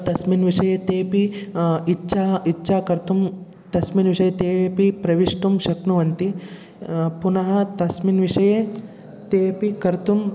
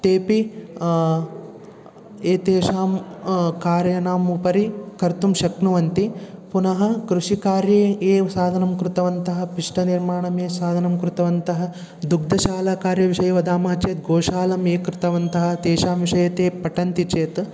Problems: continuous background conversations